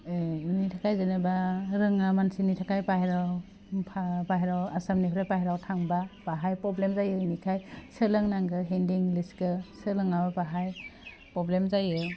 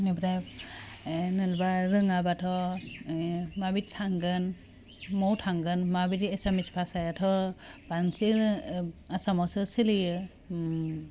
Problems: none marked